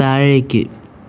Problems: constant background noise